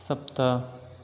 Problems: none marked